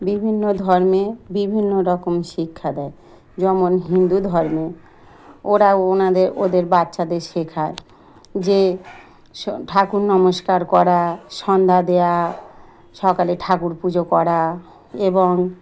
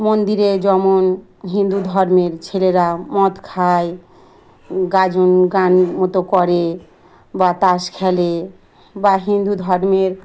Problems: none marked